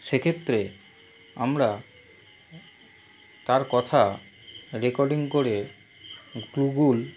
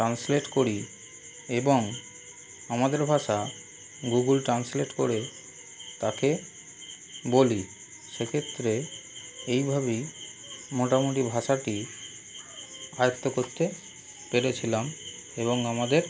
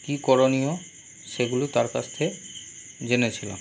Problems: constant background noise